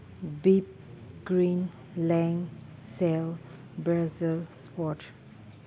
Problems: none marked